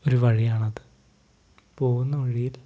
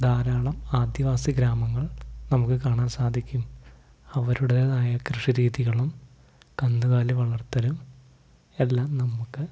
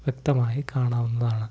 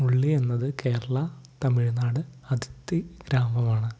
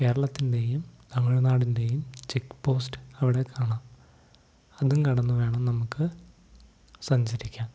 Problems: none marked